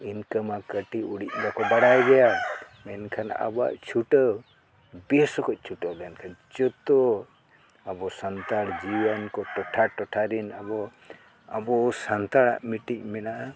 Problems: background sounds at intervals